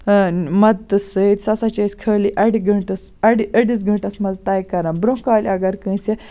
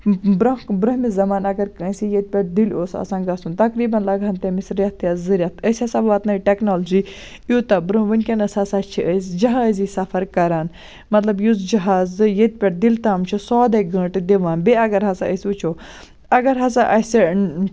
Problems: none marked